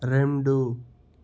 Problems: constant background noise